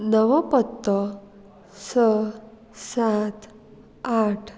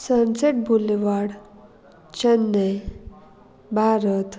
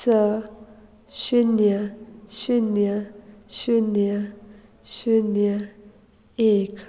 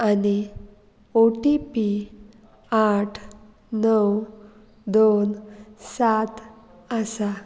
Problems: background conversations at intervals